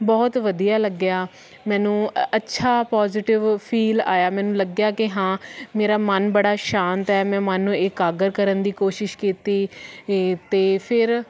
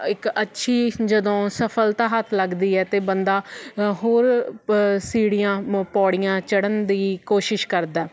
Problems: constant background noise